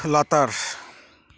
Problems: none marked